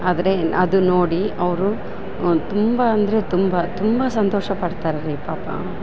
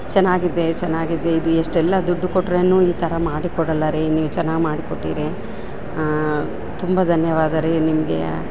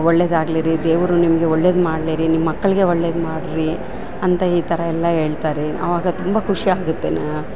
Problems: background sounds at intervals